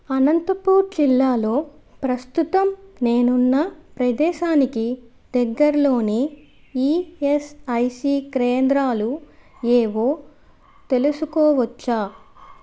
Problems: background sounds at intervals